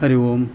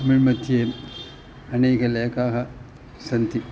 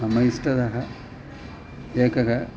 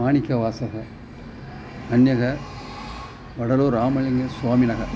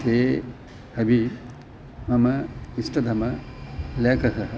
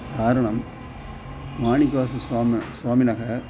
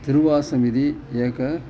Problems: constant background noise